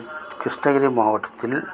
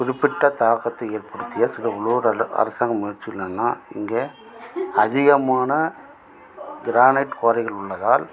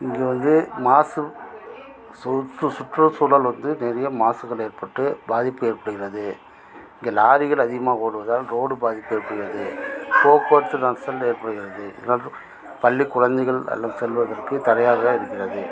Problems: constant background noise, continuous background conversations